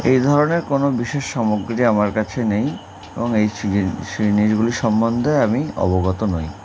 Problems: constant background noise